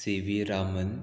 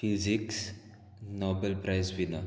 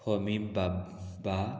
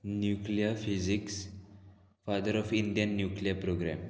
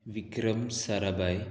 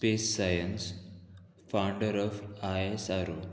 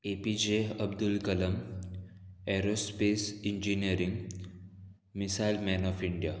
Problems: constant background noise